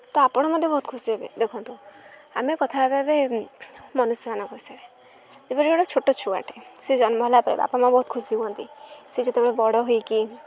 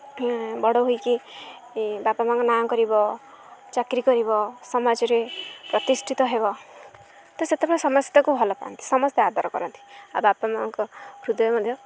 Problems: none marked